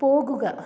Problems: none marked